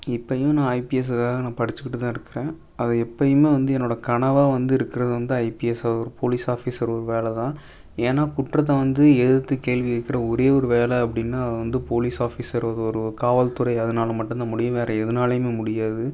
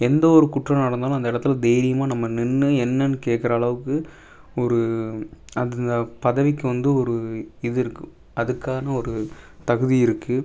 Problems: none marked